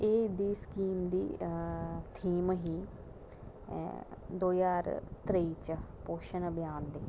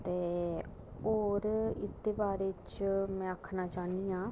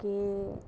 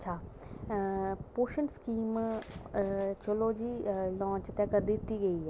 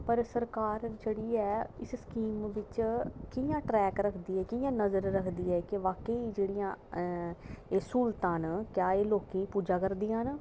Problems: constant background noise, low volume